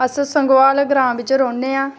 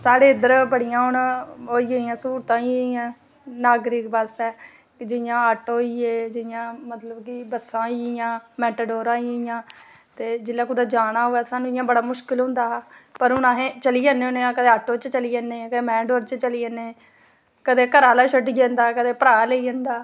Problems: background sounds at intervals